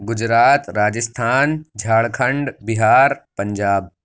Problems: constant background noise